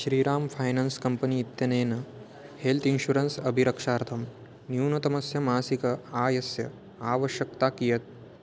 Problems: constant background noise